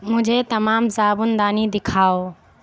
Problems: constant background noise